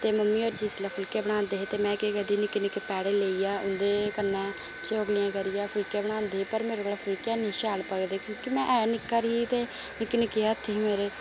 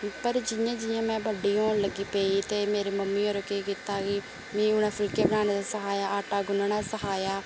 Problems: constant background noise